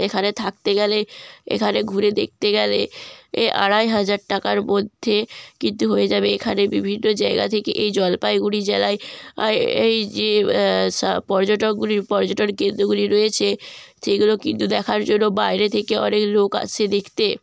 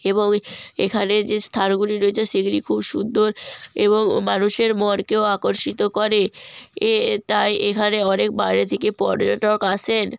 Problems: constant background noise